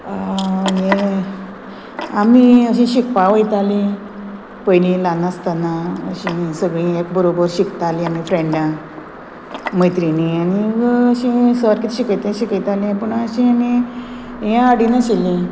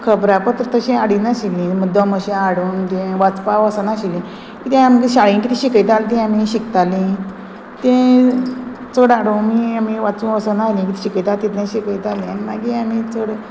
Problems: constant background noise